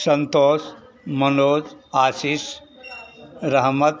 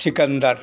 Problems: none marked